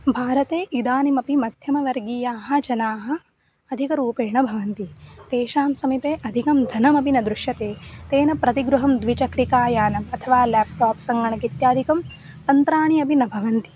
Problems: background sounds at intervals